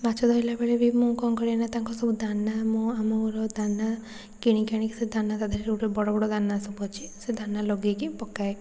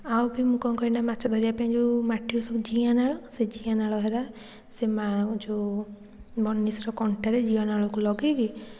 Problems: none marked